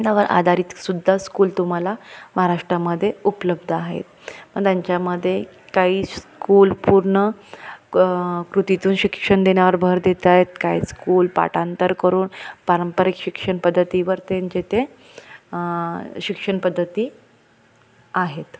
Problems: constant background noise